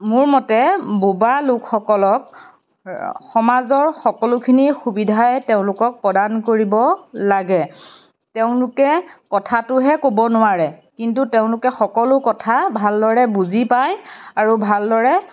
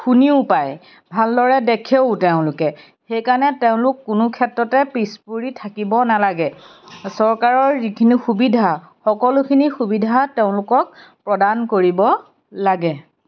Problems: background sounds at intervals